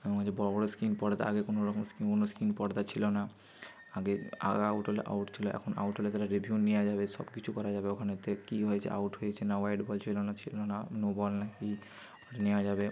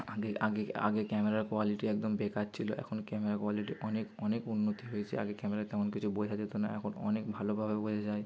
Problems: none marked